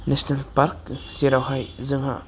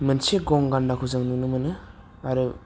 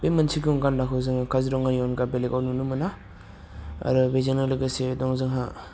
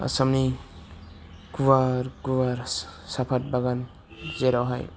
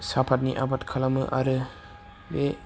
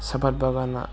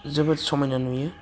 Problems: low volume